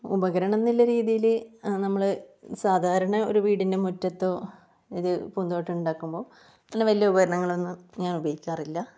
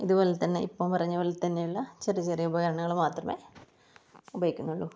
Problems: low volume